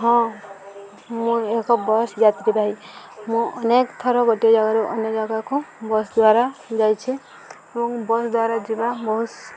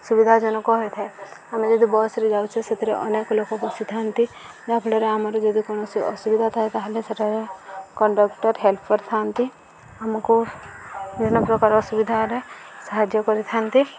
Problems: none marked